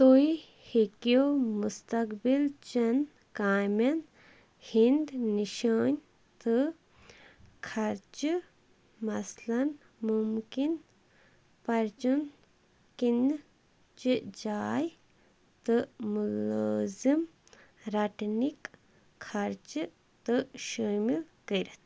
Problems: background sounds at intervals